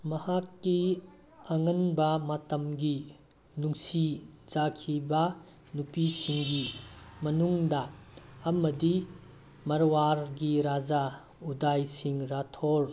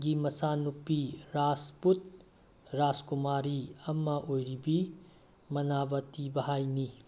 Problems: constant background noise